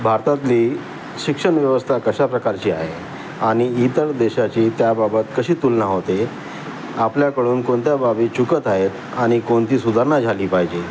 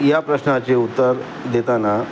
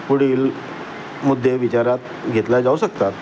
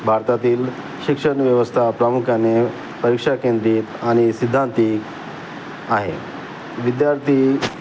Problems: constant background noise, continuous background conversations